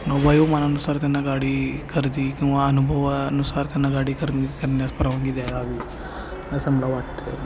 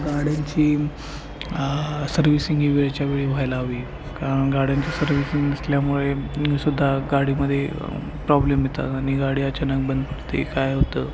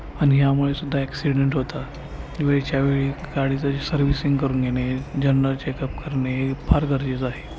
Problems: constant background noise, continuous background conversations